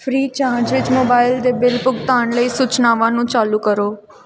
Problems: background sounds at intervals